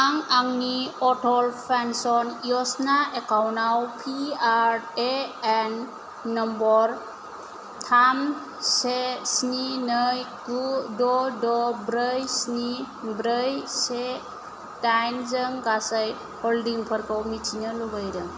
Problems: none marked